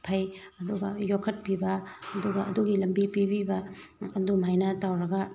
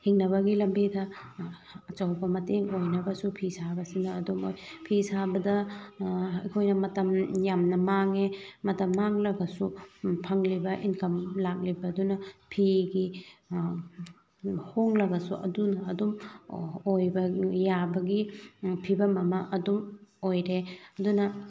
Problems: background sounds at intervals